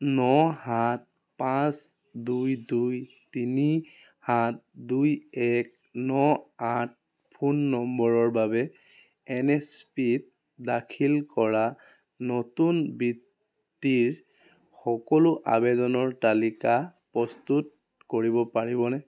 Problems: background sounds at intervals